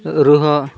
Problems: background sounds at intervals